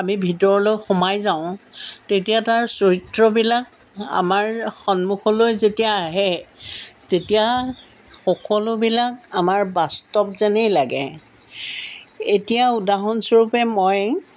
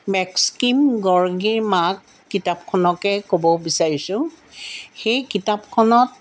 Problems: none marked